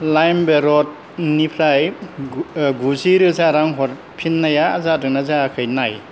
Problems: low volume